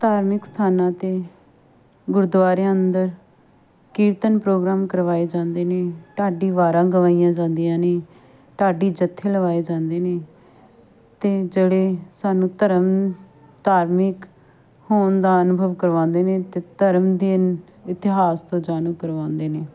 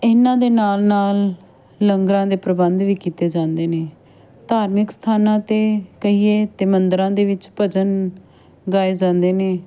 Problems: background sounds at intervals, background conversations at intervals